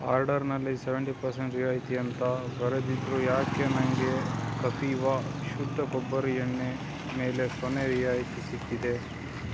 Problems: background sounds at intervals